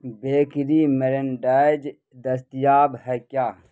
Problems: constant background noise